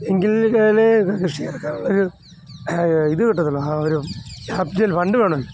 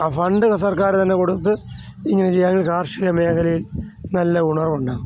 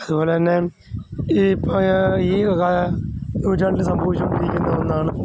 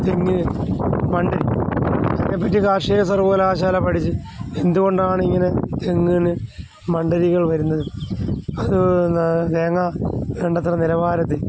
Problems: none marked